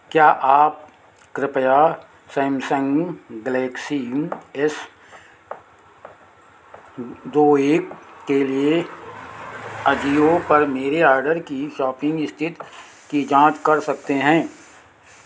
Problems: constant background noise